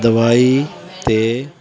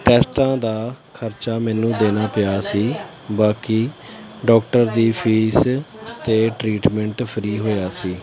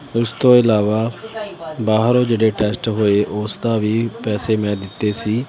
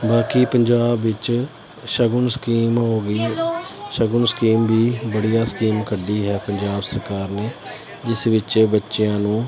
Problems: none marked